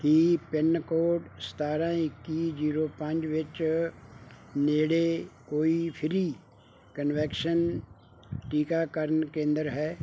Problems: background sounds at intervals